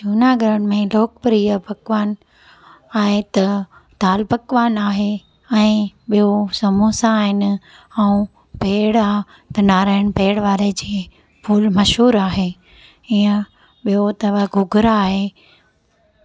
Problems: constant background noise